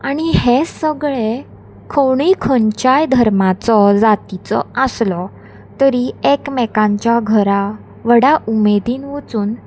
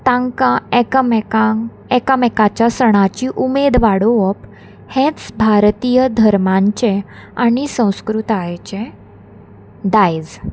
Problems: constant background noise